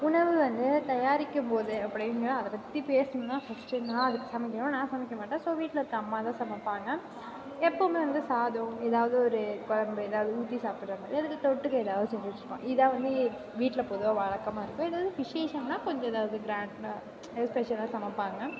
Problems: background sounds at intervals